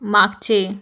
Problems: background sounds at intervals